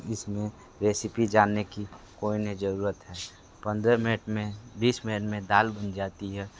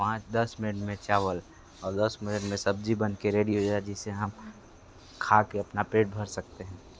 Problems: constant background noise